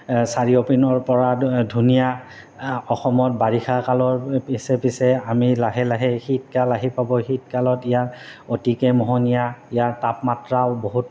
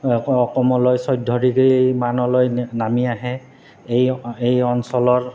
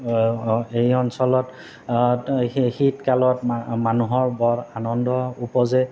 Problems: constant background noise